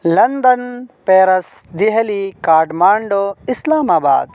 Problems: none marked